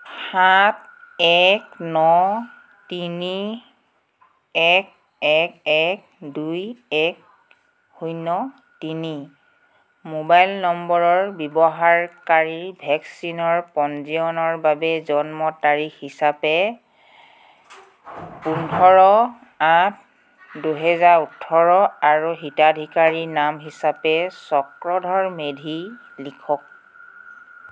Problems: constant background noise